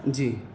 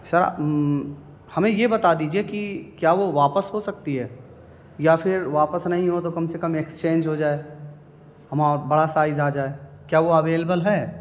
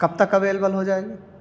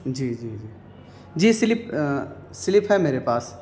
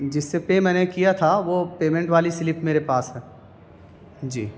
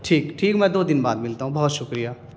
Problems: constant background noise